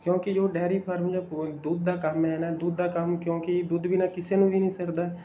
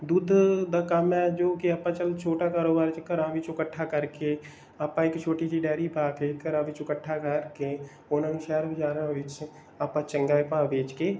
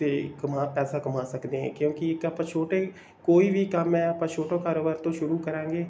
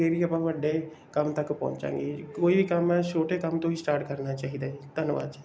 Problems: background sounds at intervals